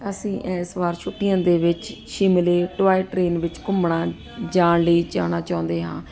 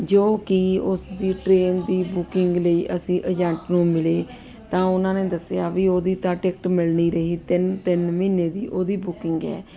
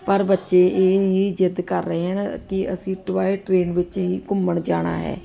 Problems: constant background noise